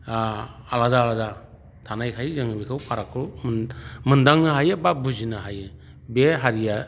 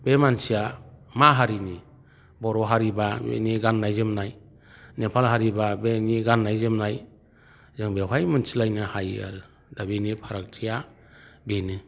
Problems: none marked